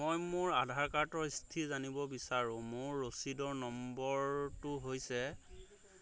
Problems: none marked